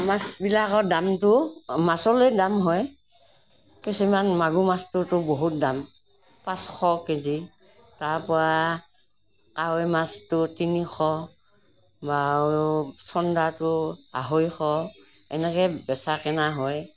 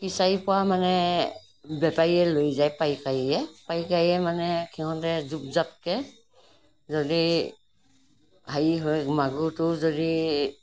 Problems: none marked